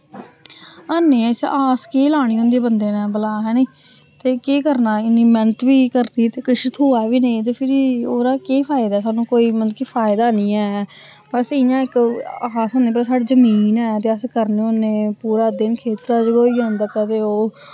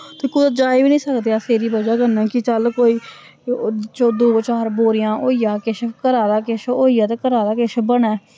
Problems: none marked